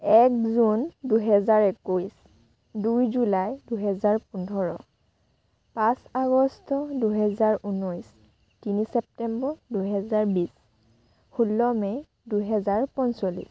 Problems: constant background noise